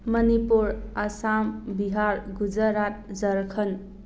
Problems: none marked